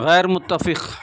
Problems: none marked